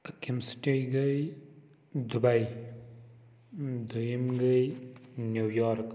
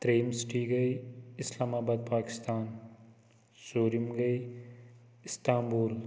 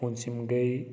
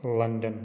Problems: constant background noise, echo